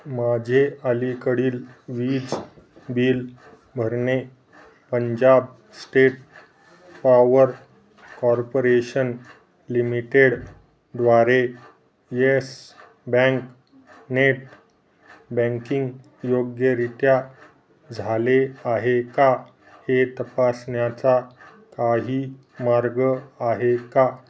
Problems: background sounds at intervals